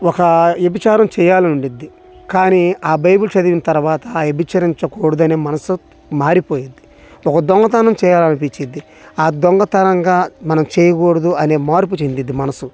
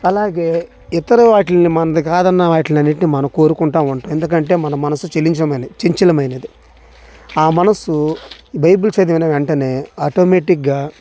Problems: constant background noise